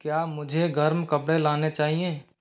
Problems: background sounds at intervals